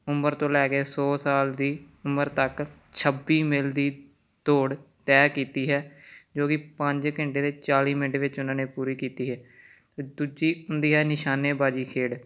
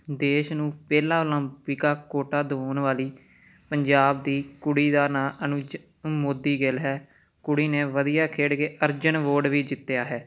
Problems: none marked